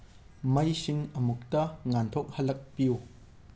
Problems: low volume